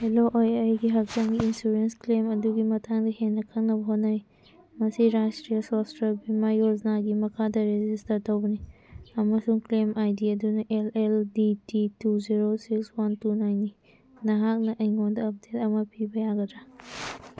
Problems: background sounds at intervals